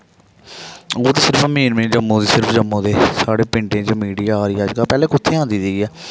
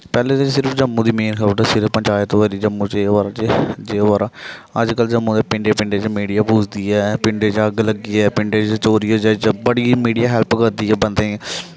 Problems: background sounds at intervals